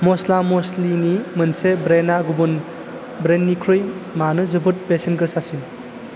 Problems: constant background noise